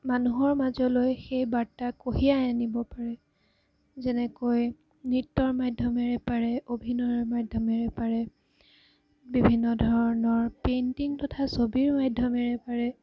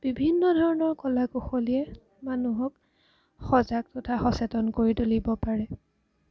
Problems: background sounds at intervals